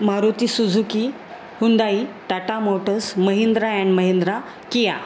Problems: constant background noise